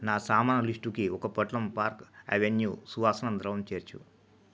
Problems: low volume